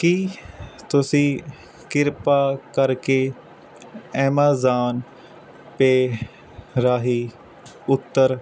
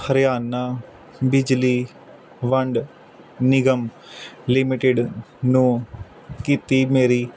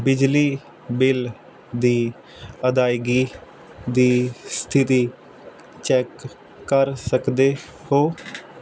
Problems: none marked